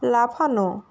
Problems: constant background noise